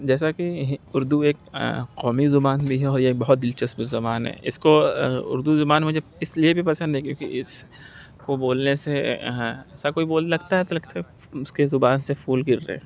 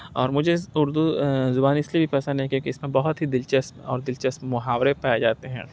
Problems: none marked